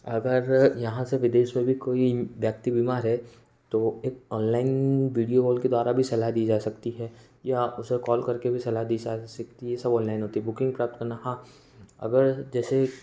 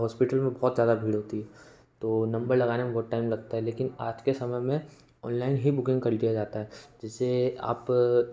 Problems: background sounds at intervals